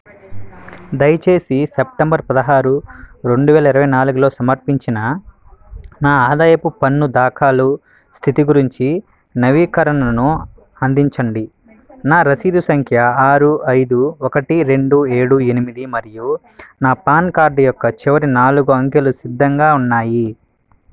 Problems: none marked